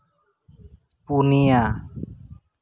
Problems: none marked